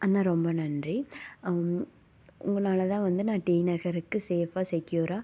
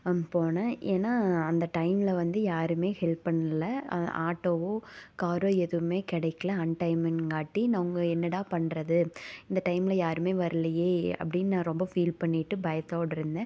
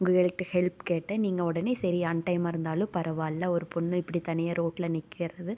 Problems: none marked